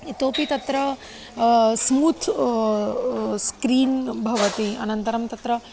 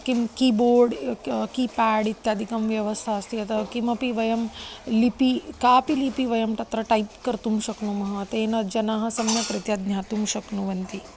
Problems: constant background noise, background conversations at intervals